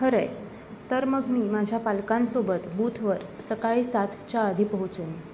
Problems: constant background noise, continuous background conversations